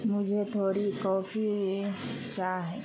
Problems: constant background noise